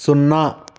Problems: constant background noise